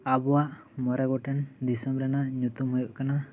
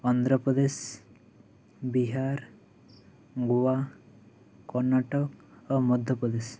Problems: none marked